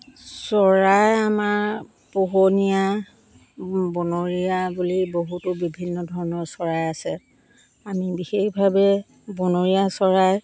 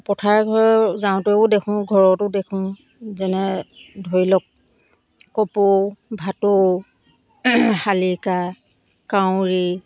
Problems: constant background noise